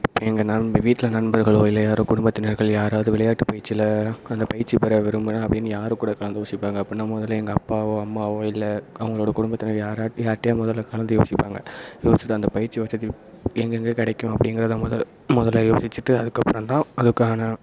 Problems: constant background noise